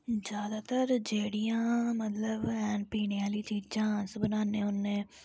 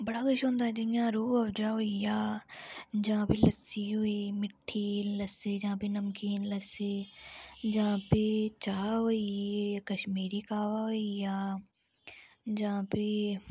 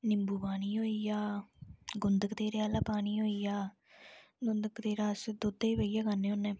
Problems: low volume